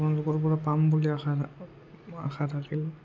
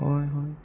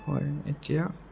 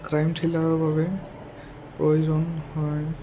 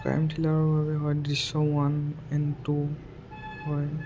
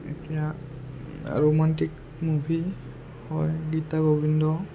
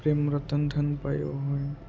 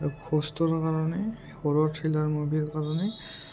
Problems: low volume